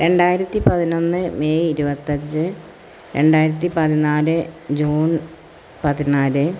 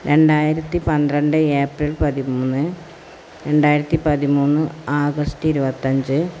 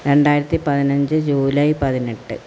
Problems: constant background noise